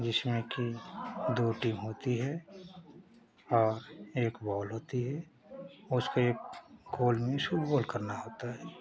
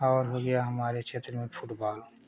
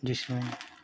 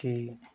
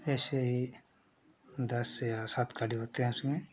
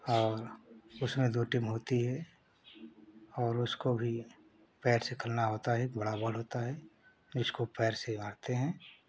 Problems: none marked